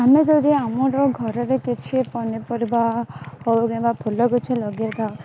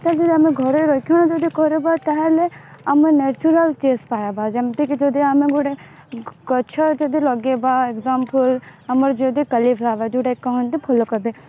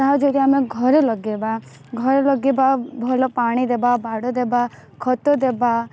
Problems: constant background noise